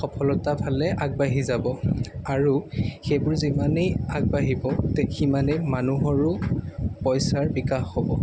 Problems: background sounds at intervals